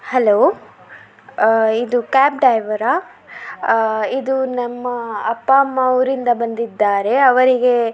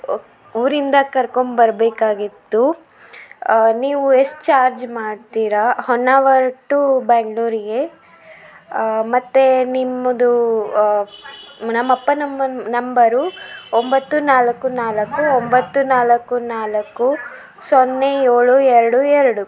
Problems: background sounds at intervals